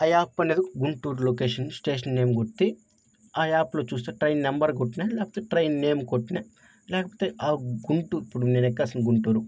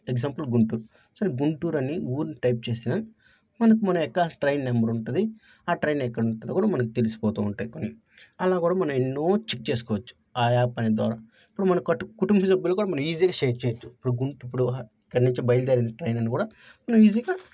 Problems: none marked